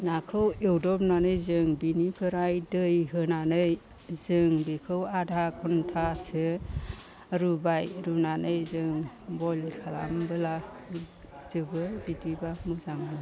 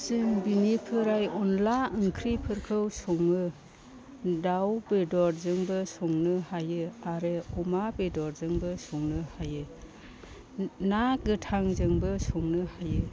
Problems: low volume